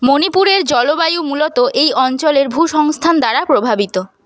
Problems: constant background noise